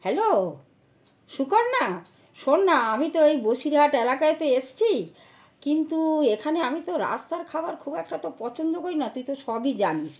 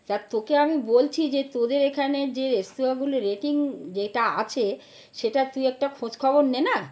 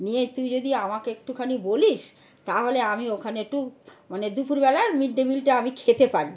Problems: constant background noise